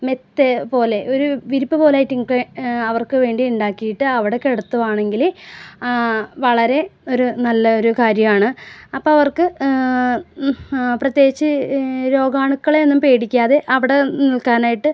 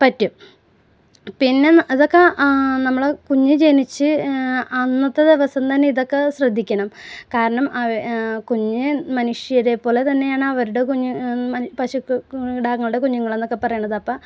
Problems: none marked